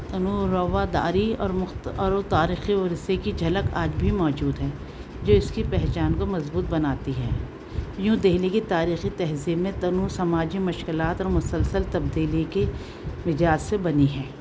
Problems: constant background noise, continuous background conversations